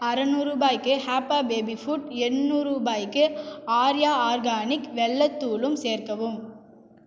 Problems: echo